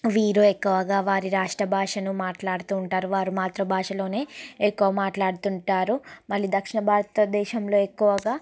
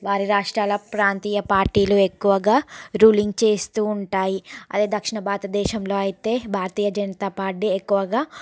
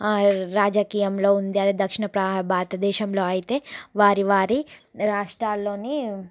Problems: background conversations at intervals